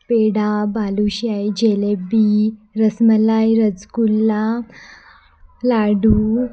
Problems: constant background noise, continuous background conversations